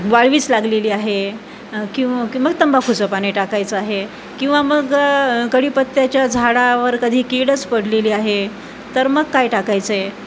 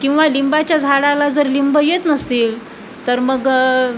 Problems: constant background noise, background conversations at intervals